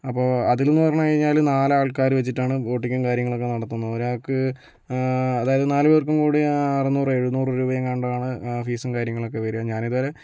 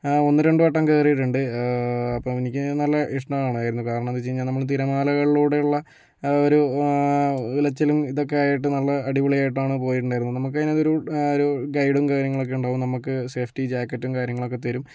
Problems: none marked